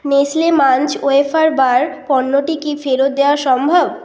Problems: constant background noise